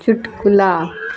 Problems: none marked